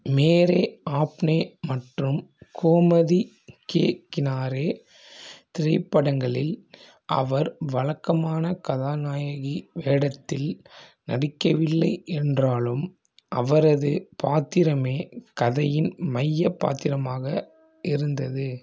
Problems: none marked